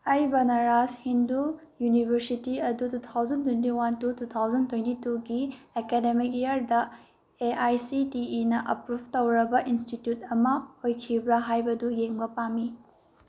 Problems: none marked